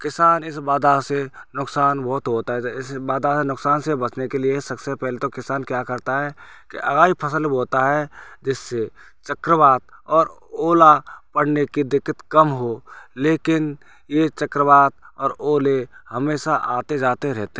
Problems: background sounds at intervals